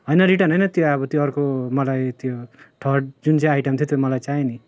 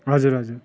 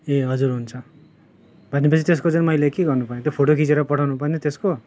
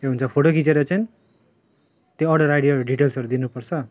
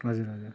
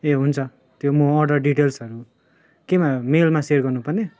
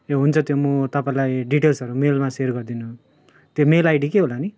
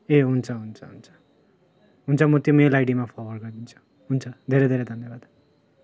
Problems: constant background noise